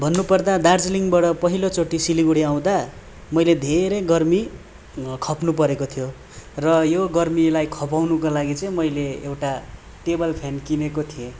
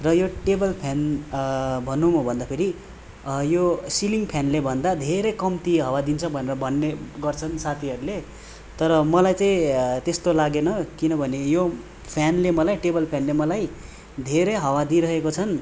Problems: none marked